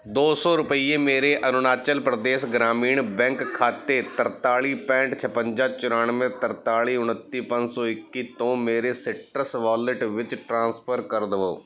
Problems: background sounds at intervals, background conversations at intervals